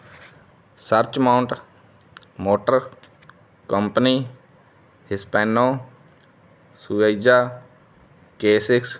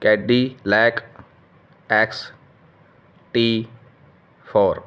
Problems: background sounds at intervals